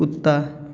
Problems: none marked